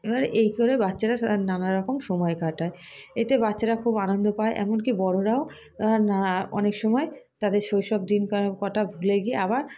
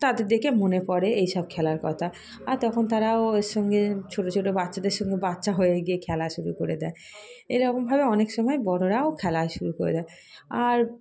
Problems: background sounds at intervals